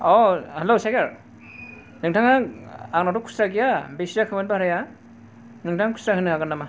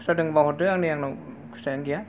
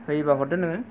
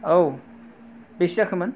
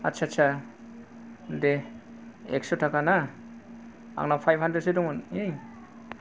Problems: none marked